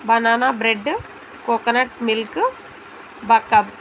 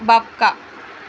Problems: background conversations at intervals